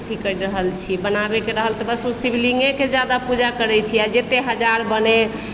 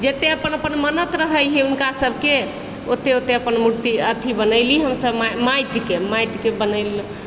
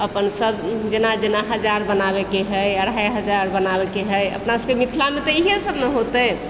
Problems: constant background noise